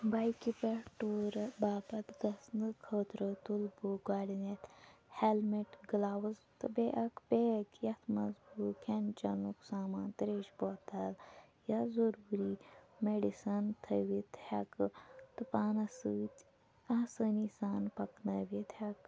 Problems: low volume